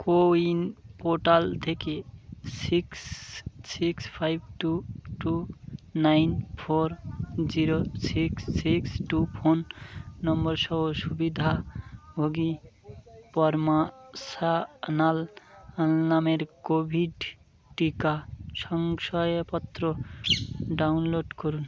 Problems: constant background noise